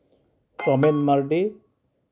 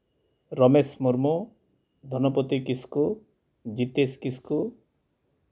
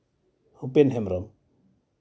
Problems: background sounds at intervals